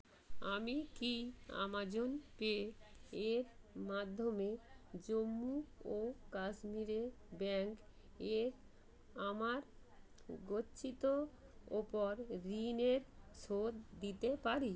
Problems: none marked